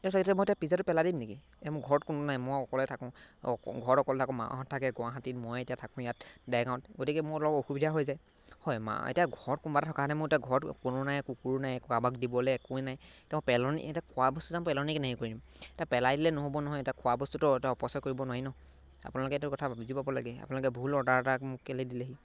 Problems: background sounds at intervals